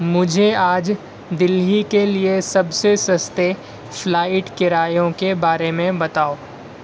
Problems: constant background noise